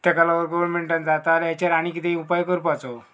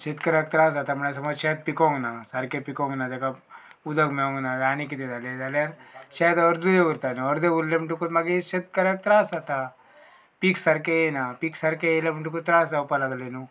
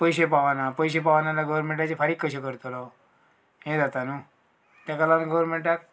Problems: background sounds at intervals